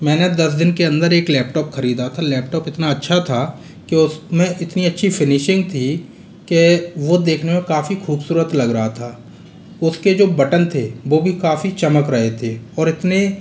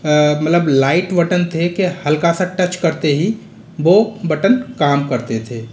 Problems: constant background noise